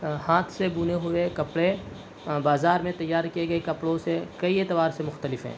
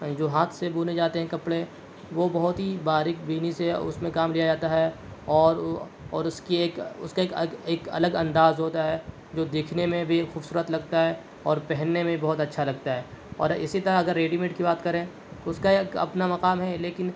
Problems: none marked